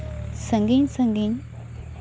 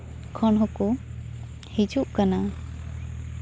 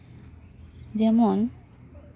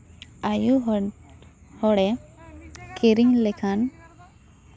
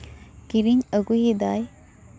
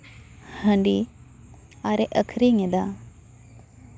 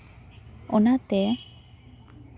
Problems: constant background noise